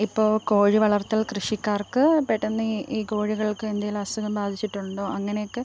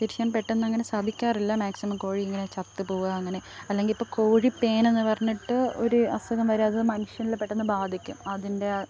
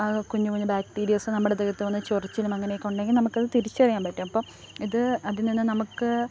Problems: background sounds at intervals